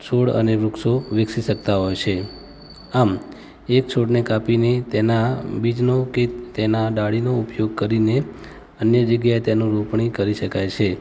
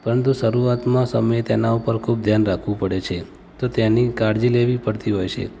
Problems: background sounds at intervals, background conversations at intervals